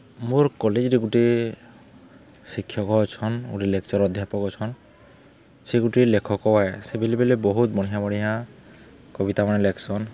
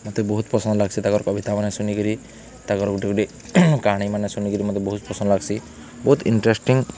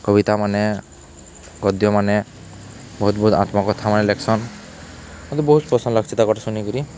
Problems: none marked